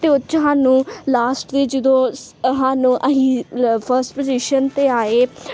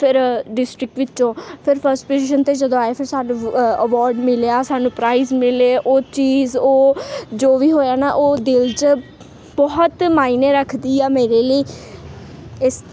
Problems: constant background noise